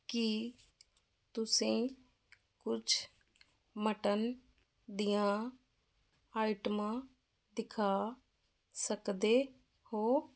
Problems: none marked